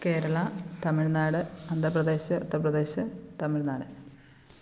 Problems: constant background noise, low volume